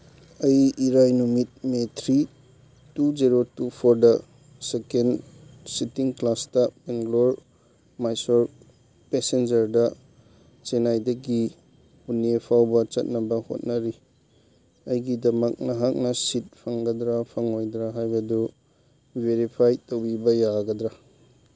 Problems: background sounds at intervals